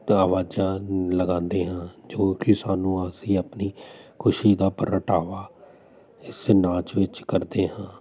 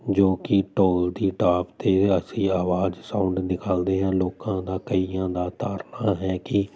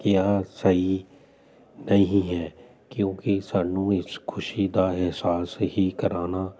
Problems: none marked